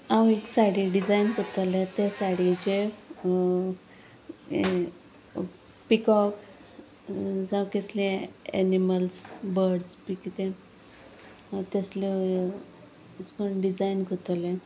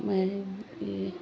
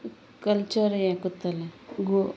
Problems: none marked